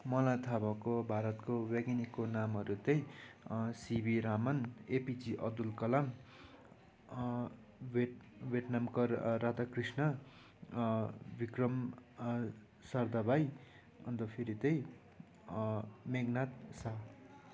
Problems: none marked